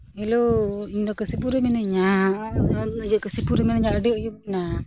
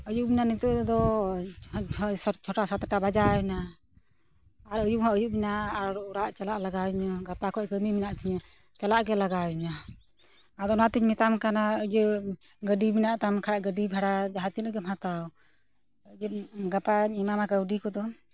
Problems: none marked